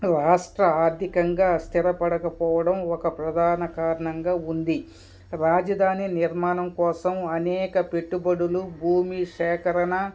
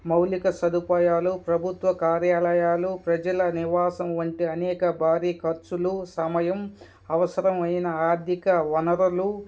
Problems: background sounds at intervals, background conversations at intervals